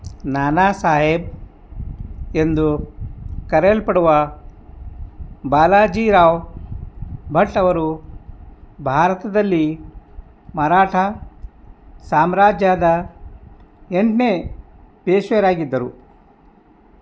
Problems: none marked